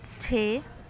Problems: background sounds at intervals, continuous background conversations